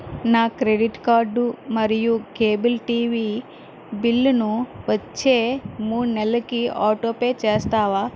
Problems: constant background noise